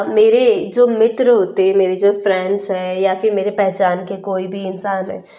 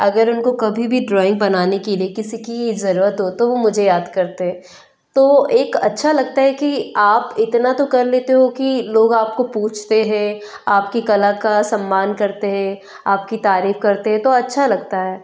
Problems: none marked